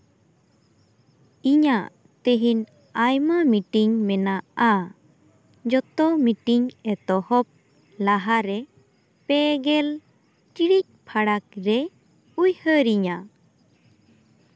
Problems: none marked